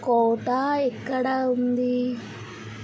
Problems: constant background noise